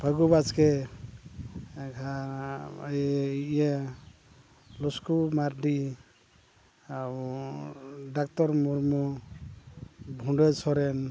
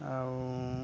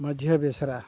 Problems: constant background noise, low volume